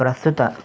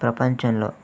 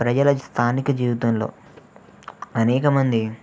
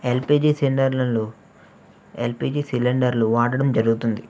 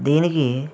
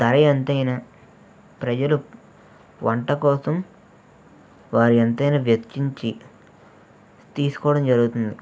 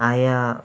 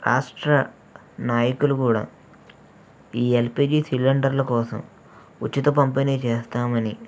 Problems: none marked